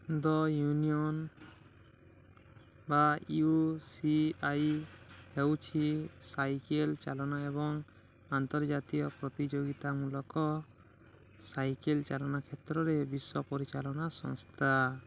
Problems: low volume